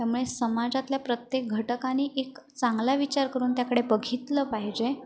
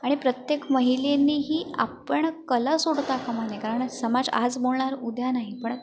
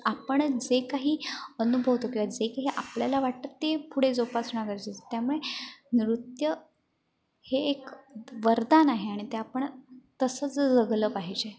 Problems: constant background noise, background conversations at intervals, echo